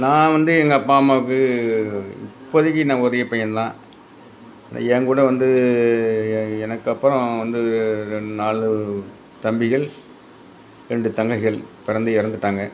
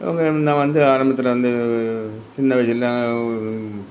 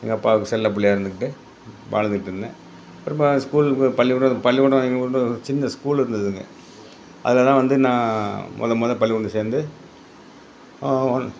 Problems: background sounds at intervals